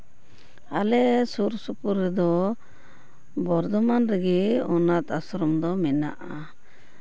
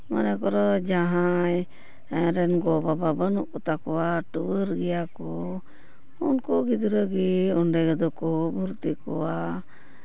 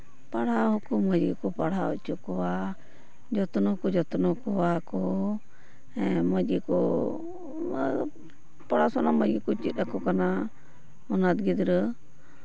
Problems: background sounds at intervals